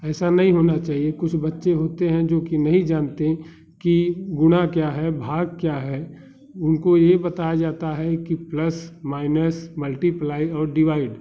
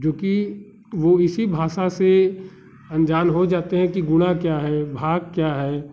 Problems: constant background noise